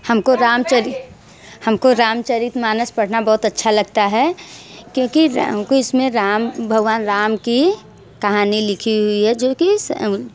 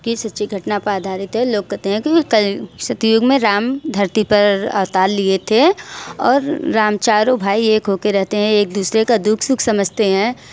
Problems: constant background noise, background conversations at intervals, echo